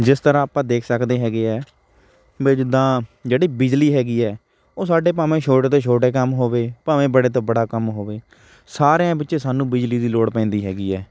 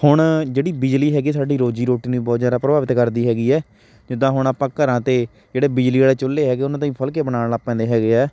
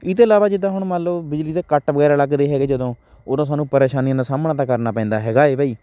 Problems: background sounds at intervals